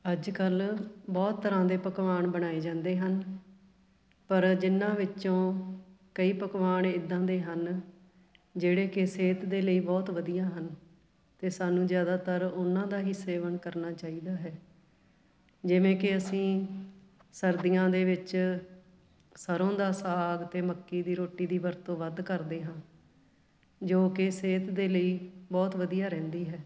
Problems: background sounds at intervals, background conversations at intervals